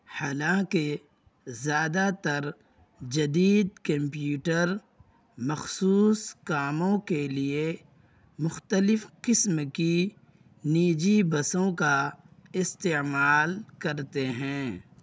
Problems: constant background noise